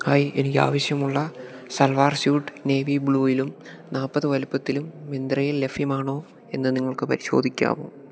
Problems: none marked